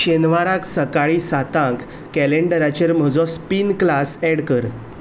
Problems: background sounds at intervals